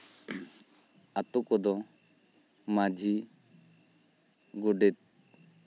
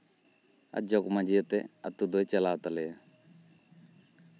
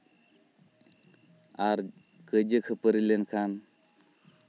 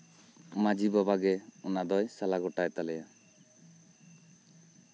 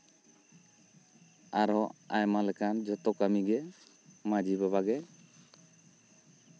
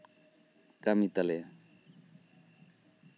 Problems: background sounds at intervals